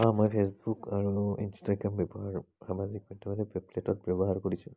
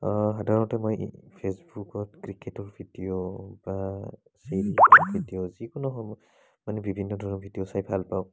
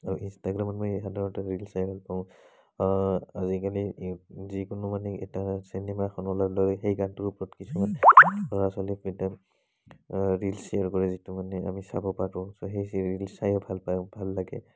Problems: none marked